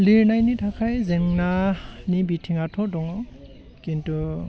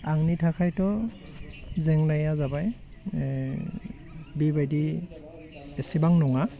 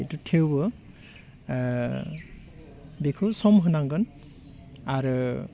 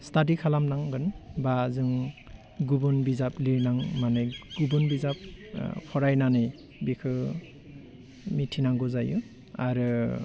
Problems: constant background noise